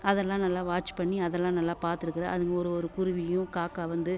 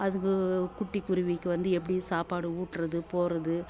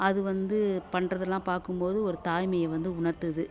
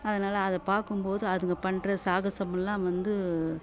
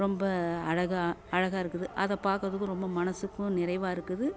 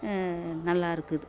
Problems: none marked